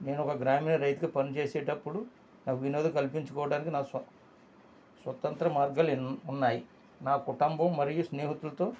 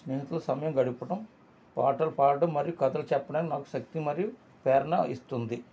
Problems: constant background noise